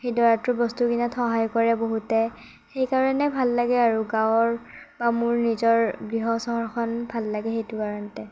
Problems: none marked